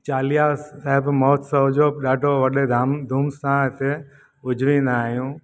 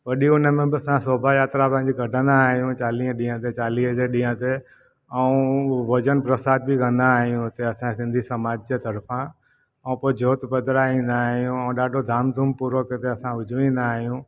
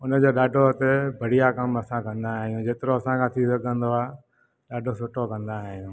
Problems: none marked